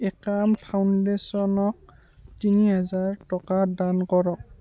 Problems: continuous background conversations